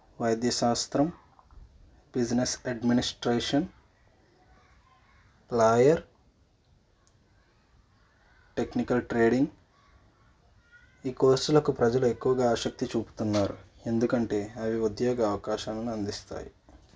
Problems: background conversations at intervals, low volume